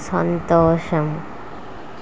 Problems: constant background noise